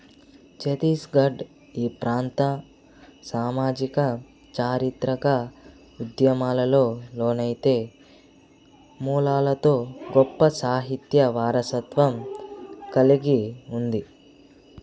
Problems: constant background noise, background conversations at intervals